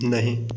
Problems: constant background noise